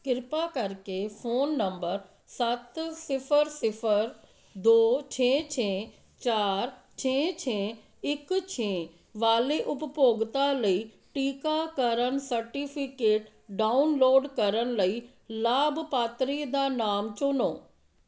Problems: background sounds at intervals